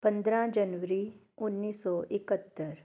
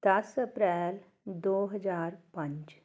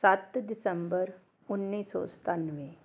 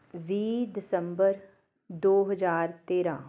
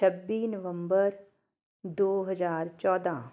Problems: none marked